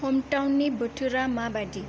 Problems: low volume